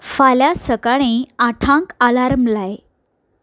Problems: none marked